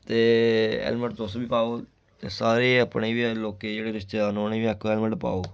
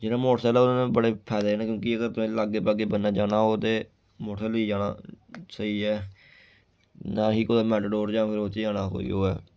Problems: constant background noise